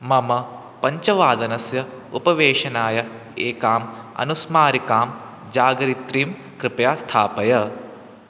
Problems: constant background noise